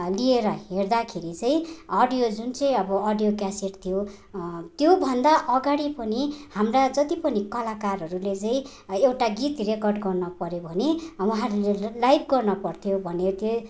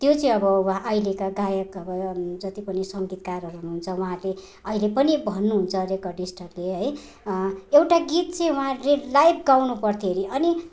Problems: none marked